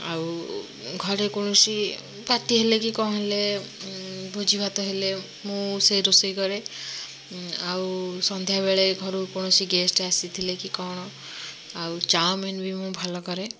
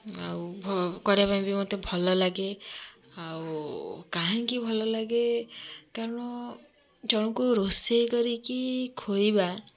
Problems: constant background noise